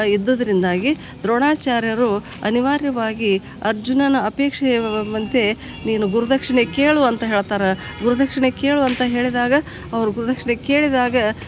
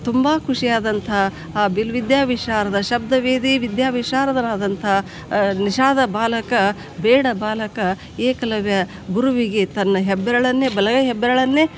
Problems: none marked